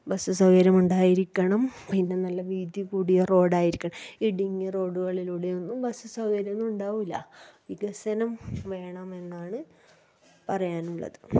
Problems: background sounds at intervals